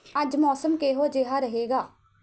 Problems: none marked